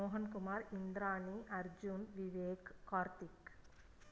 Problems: none marked